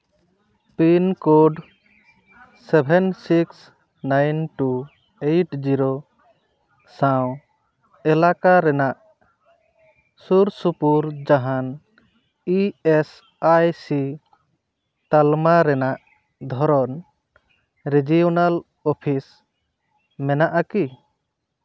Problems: background conversations at intervals